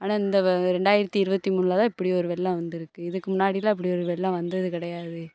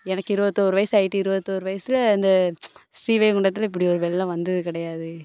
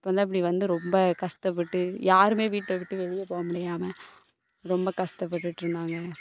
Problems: none marked